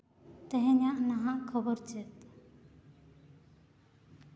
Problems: background sounds at intervals, echo